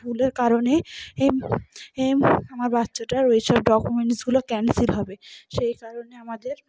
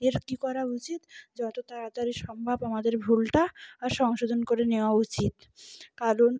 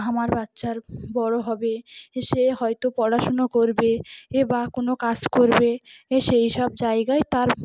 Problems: background sounds at intervals, background conversations at intervals